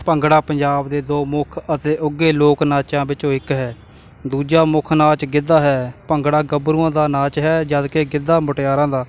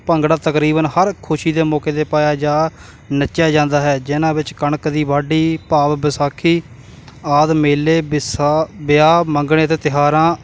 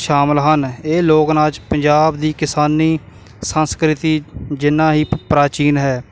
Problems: constant background noise